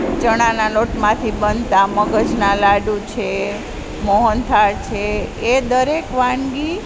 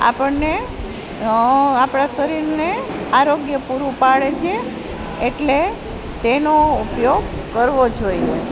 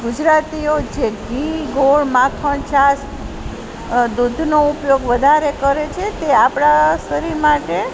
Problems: constant background noise